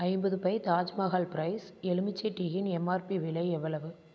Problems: none marked